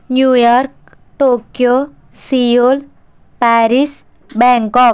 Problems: constant background noise